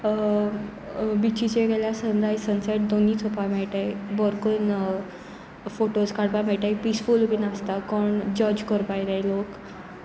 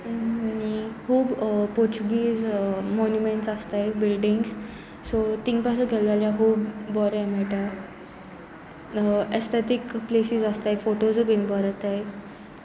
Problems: continuous background conversations